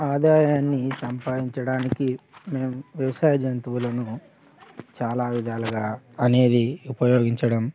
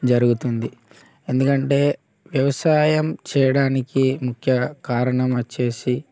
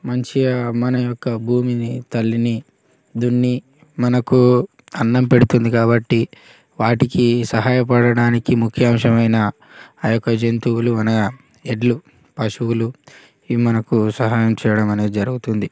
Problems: constant background noise, background conversations at intervals